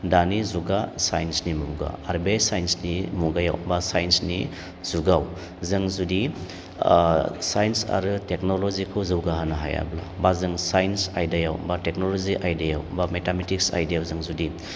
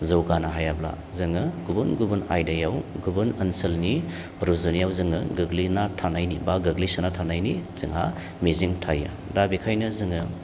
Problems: none marked